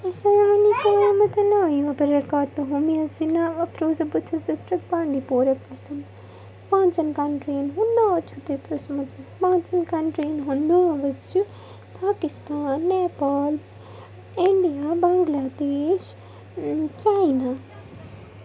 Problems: constant background noise